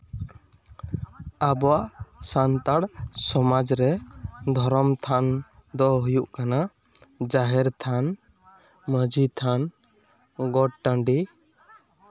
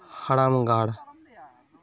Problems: none marked